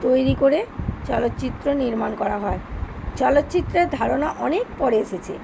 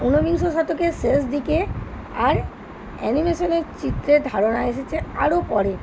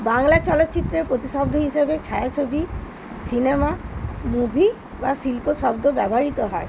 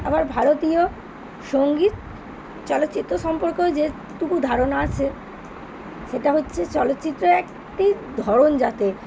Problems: none marked